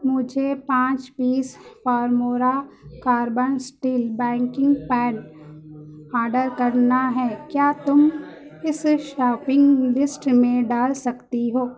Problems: continuous background conversations